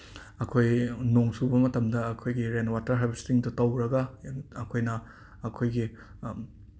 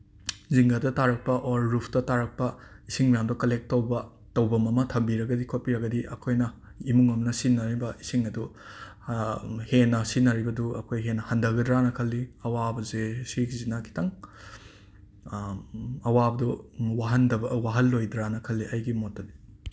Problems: background sounds at intervals